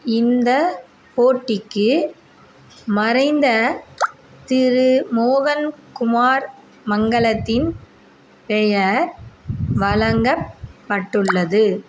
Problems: background sounds at intervals